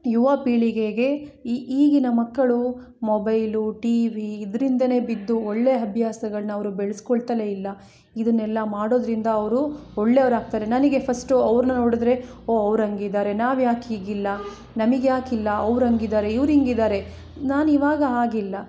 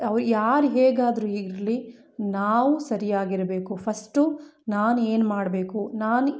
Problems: none marked